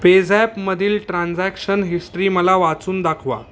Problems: background sounds at intervals